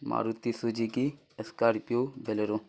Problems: constant background noise